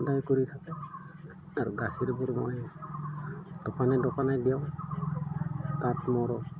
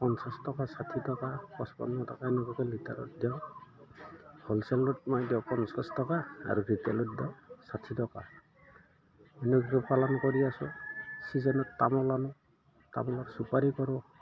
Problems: background sounds at intervals